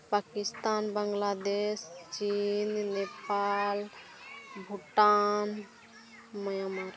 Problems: continuous background conversations, low volume